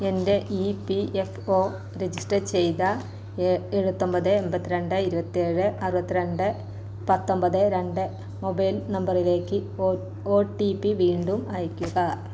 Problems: constant background noise